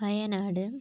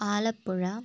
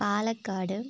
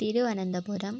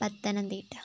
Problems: background sounds at intervals